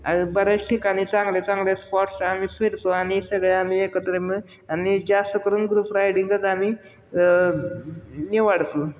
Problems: none marked